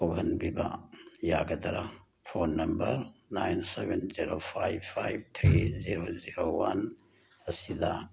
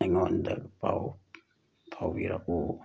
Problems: background sounds at intervals